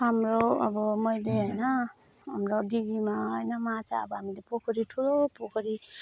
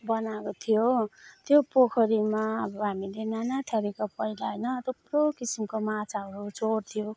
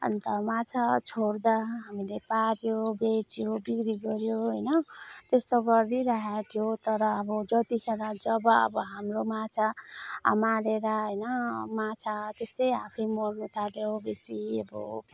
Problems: none marked